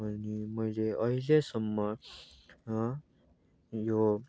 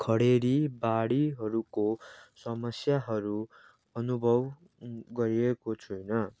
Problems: background sounds at intervals